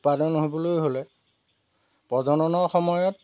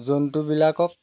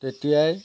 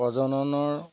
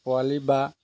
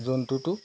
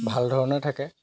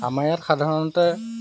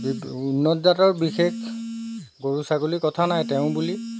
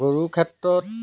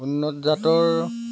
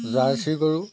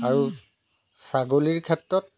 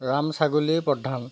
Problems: background sounds at intervals